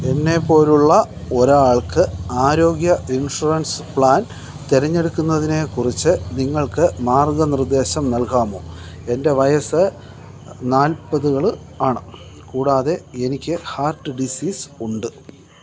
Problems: none marked